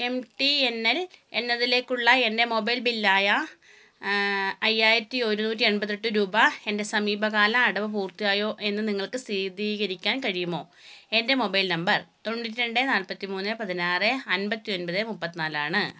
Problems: none marked